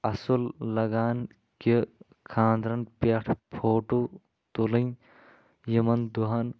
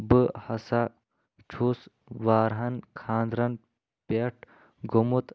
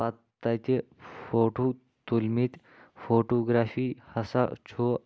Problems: background sounds at intervals